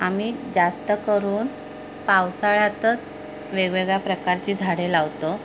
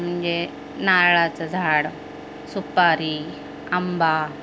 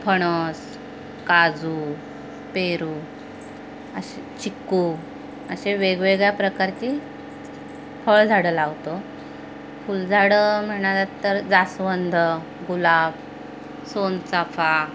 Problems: constant background noise, background conversations at intervals